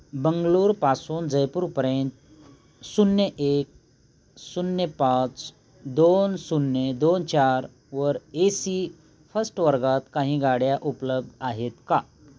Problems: none marked